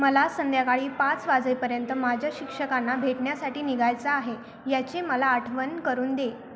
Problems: constant background noise, continuous background conversations